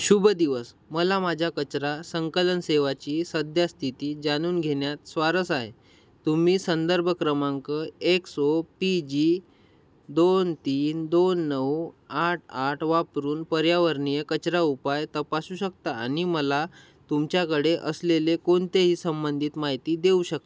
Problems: none marked